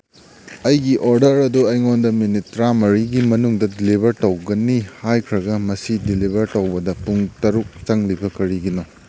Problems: background sounds at intervals